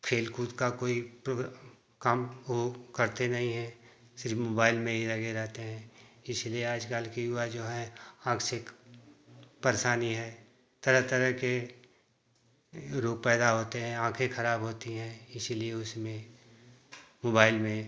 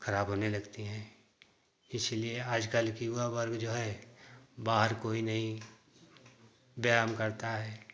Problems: constant background noise